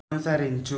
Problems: none marked